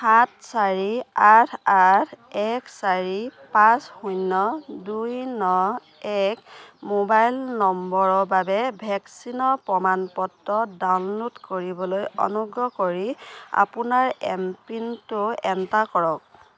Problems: continuous background conversations